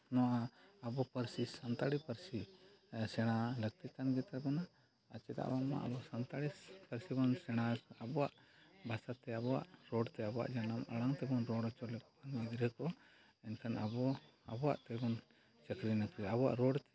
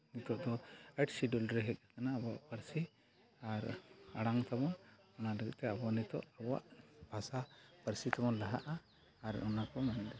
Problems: low volume